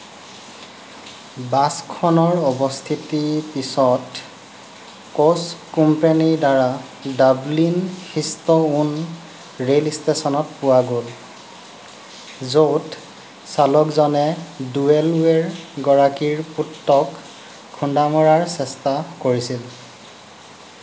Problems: none marked